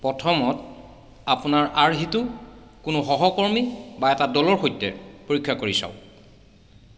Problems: background sounds at intervals